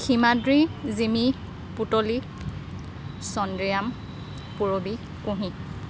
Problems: background sounds at intervals, background conversations at intervals